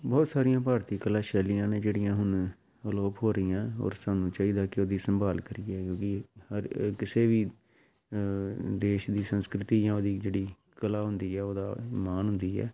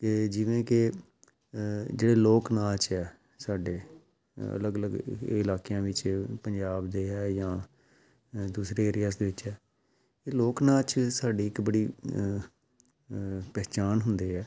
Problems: background sounds at intervals